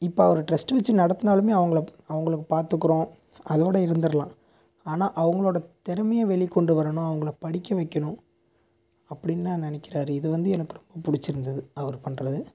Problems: constant background noise